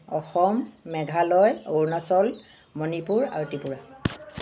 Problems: background sounds at intervals